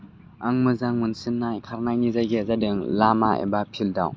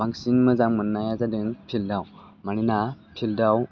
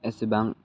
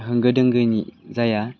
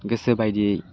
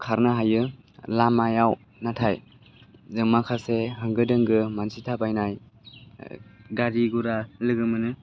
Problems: constant background noise